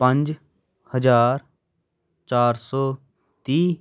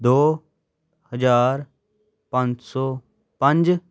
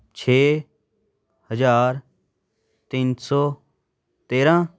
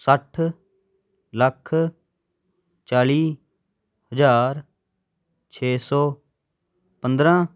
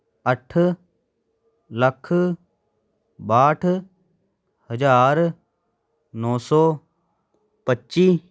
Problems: none marked